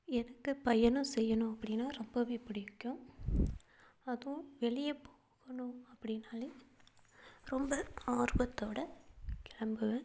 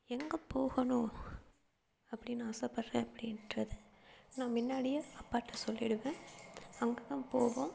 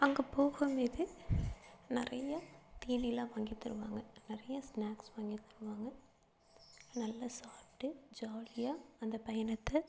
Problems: low volume